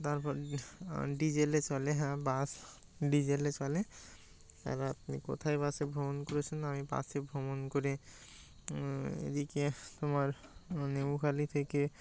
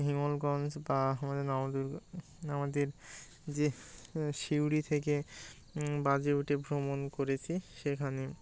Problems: none marked